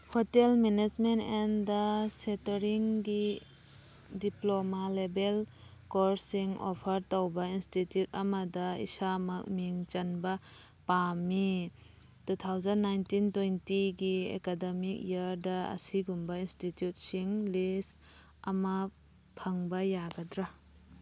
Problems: background sounds at intervals